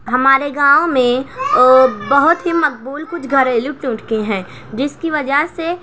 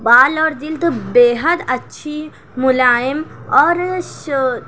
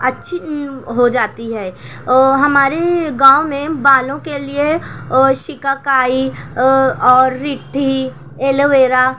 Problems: none marked